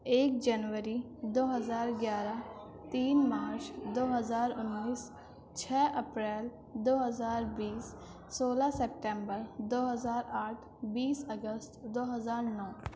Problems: constant background noise, low volume